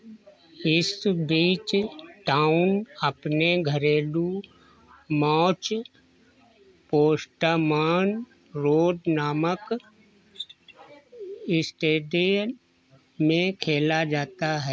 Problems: none marked